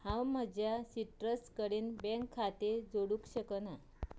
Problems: none marked